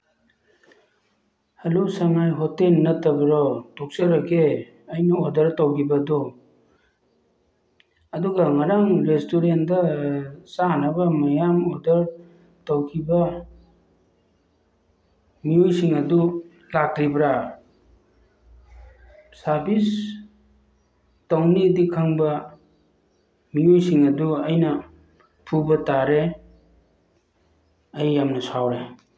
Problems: low volume